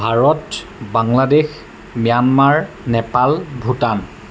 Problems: none marked